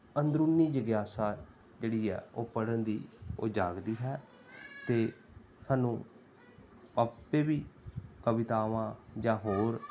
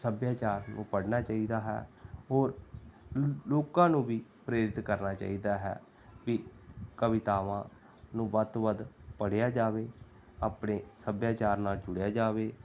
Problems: background sounds at intervals, background conversations at intervals